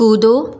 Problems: none marked